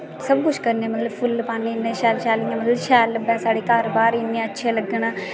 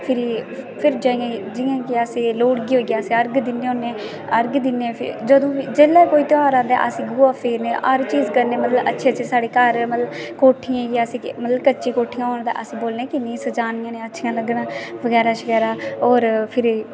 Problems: constant background noise, background conversations at intervals